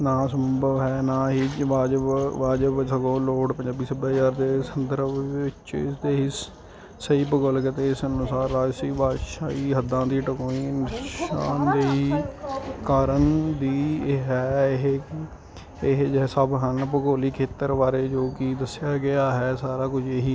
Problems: constant background noise